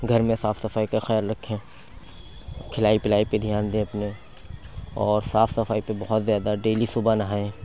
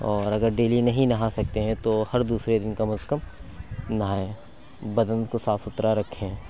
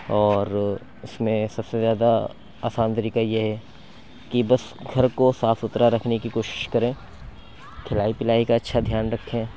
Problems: background conversations at intervals